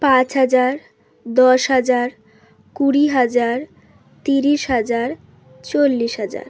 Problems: background sounds at intervals